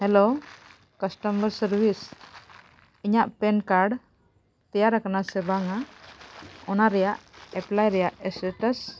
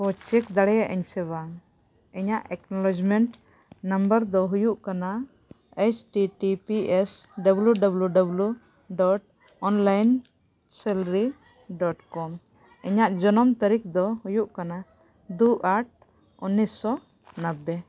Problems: none marked